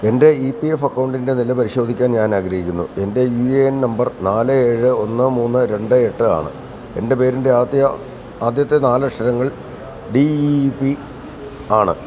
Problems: constant background noise